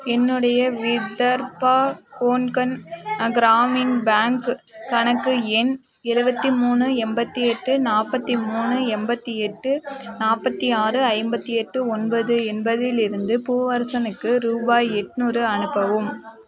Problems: background sounds at intervals